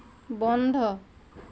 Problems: none marked